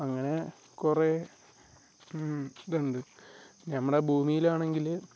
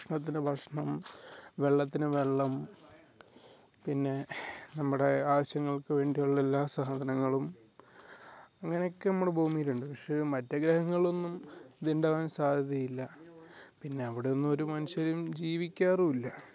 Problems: none marked